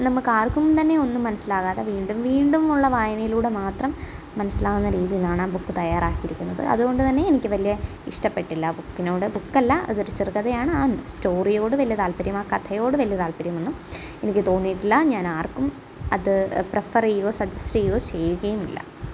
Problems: background sounds at intervals